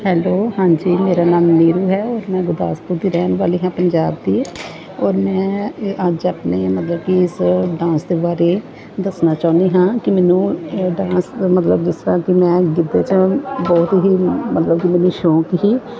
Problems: constant background noise, continuous background conversations